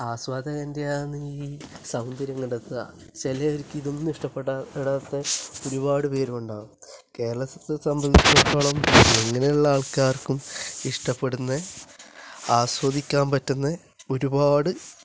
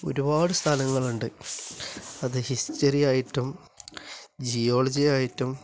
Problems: constant background noise, low volume